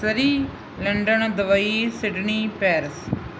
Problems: background sounds at intervals